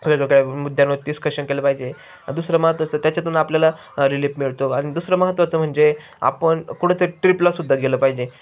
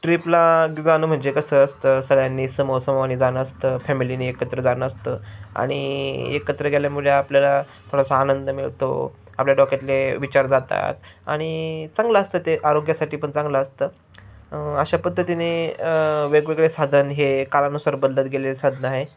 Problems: background sounds at intervals, background conversations at intervals